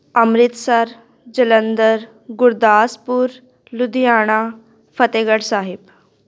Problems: none marked